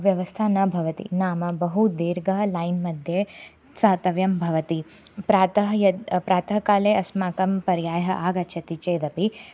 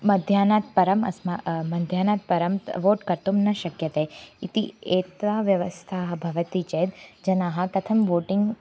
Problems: constant background noise